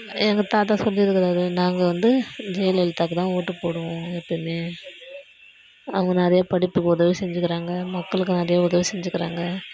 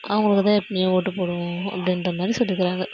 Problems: background sounds at intervals